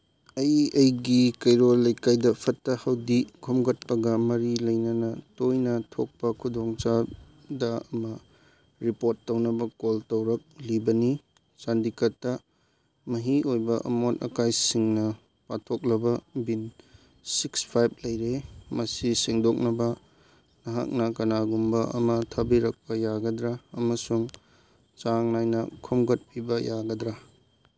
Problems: none marked